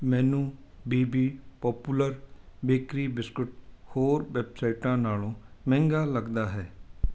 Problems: none marked